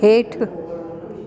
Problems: constant background noise, echo